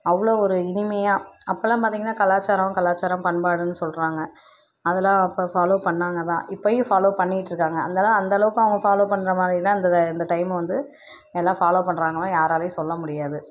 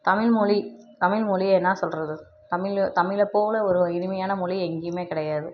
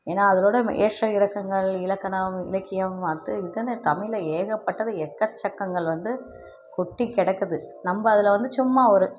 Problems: none marked